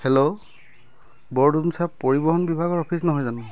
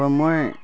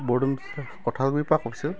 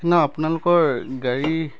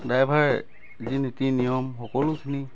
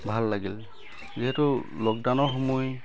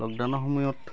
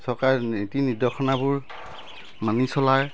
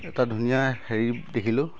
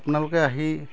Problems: constant background noise, continuous background conversations